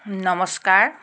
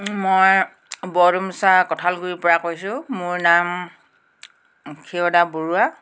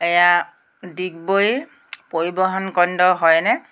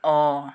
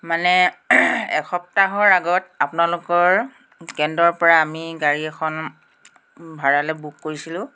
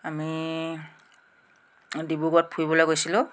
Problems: background sounds at intervals